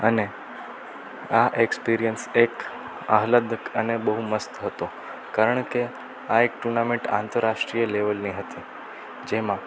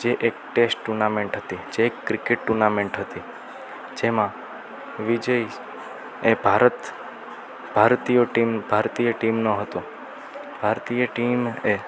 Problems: constant background noise